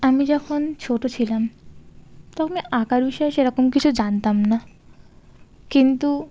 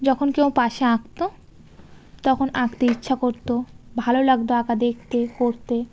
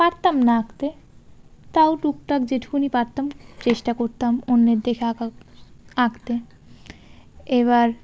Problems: constant background noise